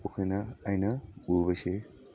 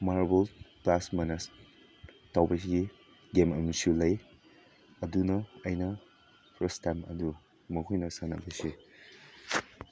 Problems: background sounds at intervals